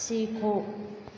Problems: none marked